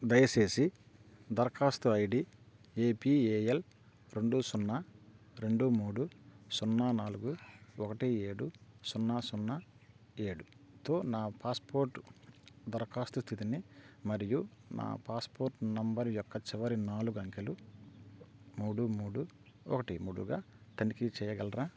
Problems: none marked